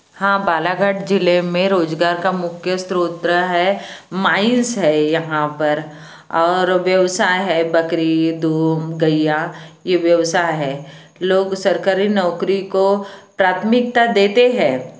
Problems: constant background noise